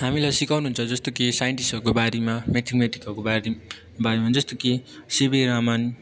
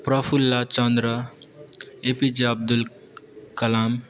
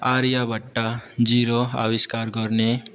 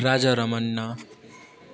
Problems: continuous background conversations